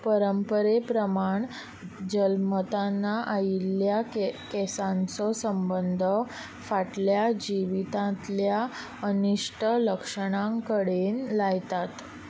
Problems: constant background noise